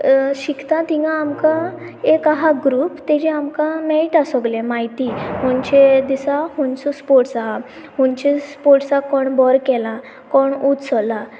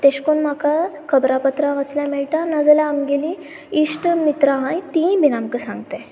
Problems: constant background noise